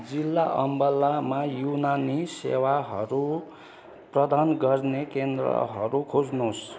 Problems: constant background noise, continuous background conversations